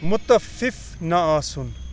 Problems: background sounds at intervals